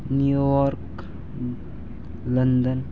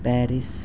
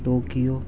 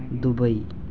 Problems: none marked